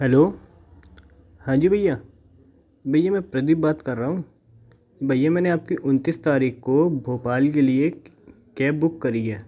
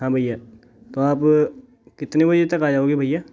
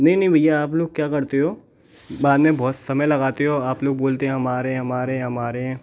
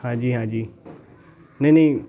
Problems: background sounds at intervals, background conversations at intervals